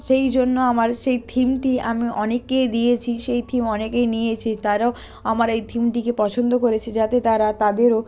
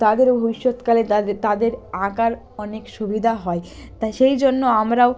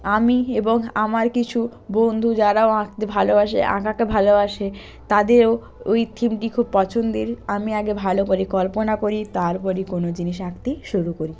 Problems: none marked